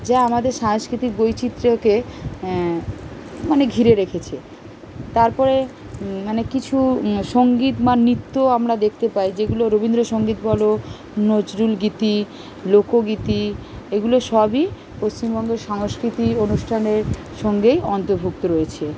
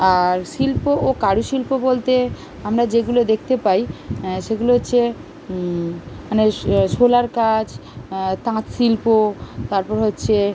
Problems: constant background noise